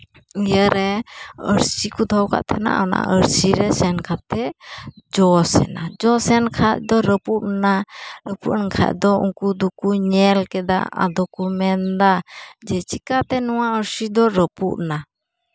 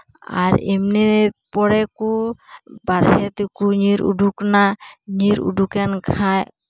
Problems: none marked